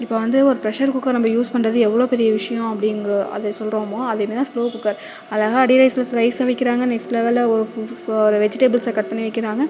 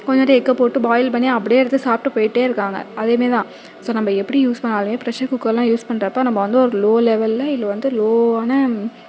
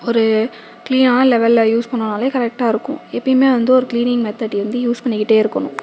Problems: none marked